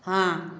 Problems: none marked